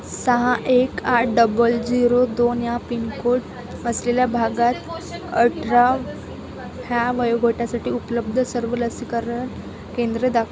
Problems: constant background noise, background conversations at intervals